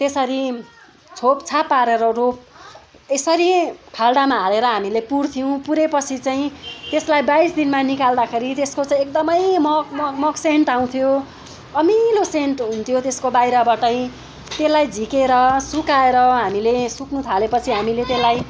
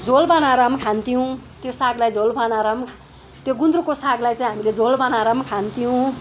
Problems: background sounds at intervals, background conversations at intervals